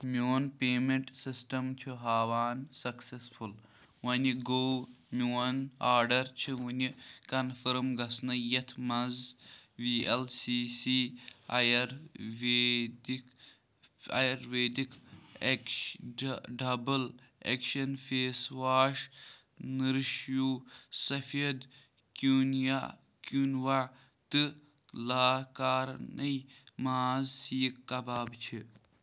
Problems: background sounds at intervals